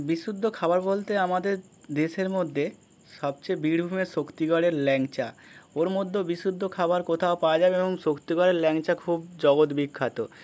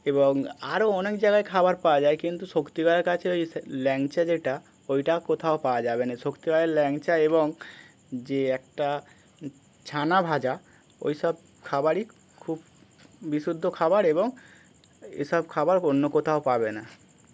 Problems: none marked